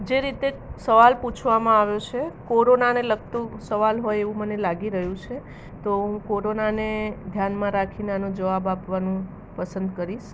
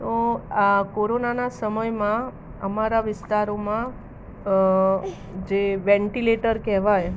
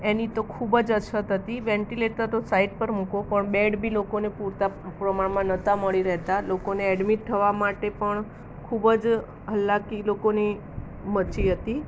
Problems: none marked